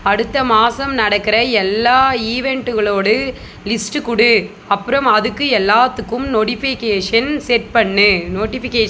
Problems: none marked